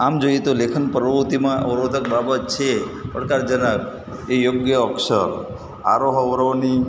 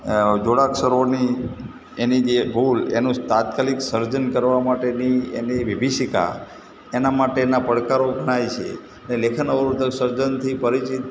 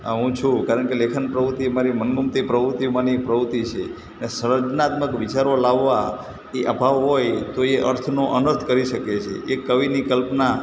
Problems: constant background noise